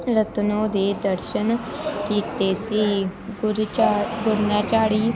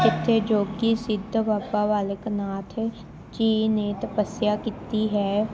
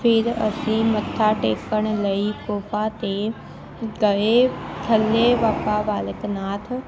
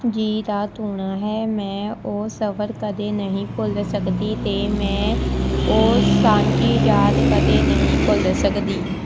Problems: constant background noise, continuous background conversations